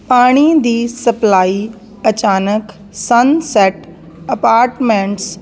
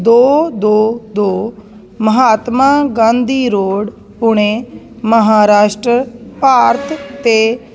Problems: constant background noise